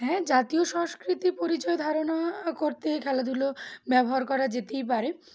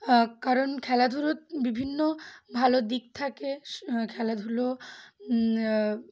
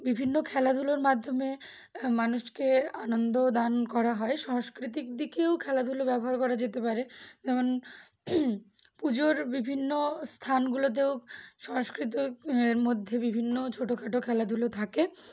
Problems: background sounds at intervals